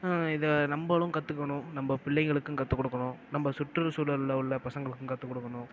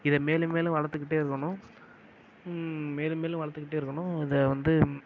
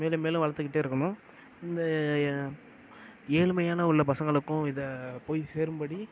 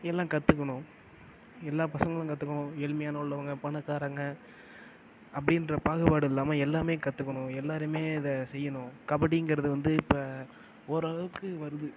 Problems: low volume